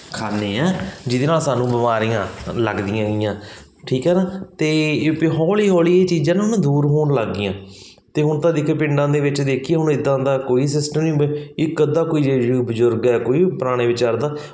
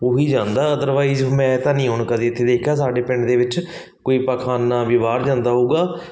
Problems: background sounds at intervals